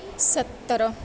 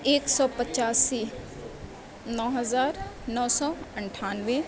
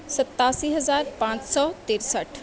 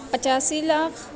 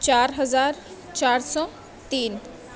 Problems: none marked